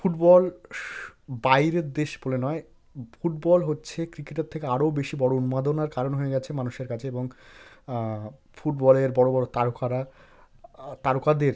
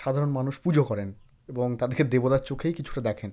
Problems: none marked